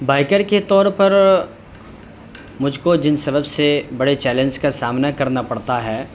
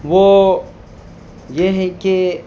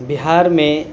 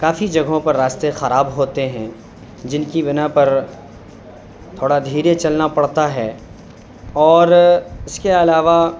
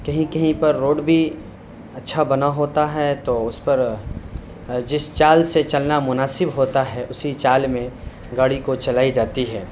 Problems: constant background noise